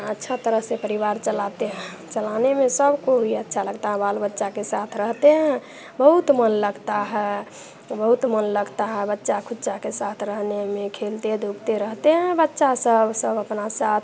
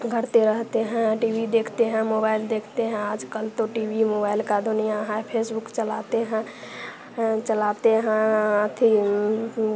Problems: none marked